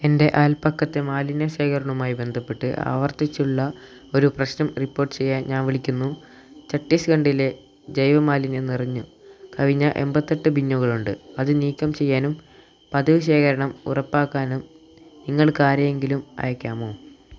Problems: constant background noise, low volume